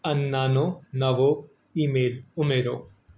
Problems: none marked